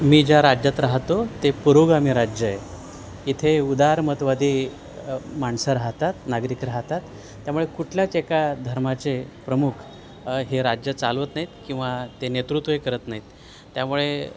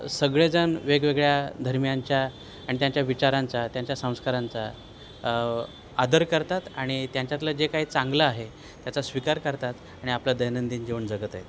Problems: none marked